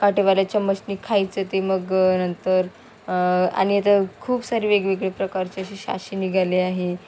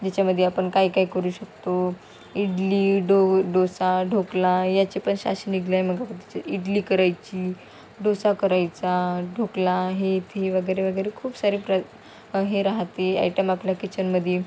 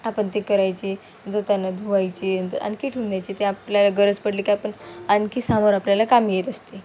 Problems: constant background noise, continuous background conversations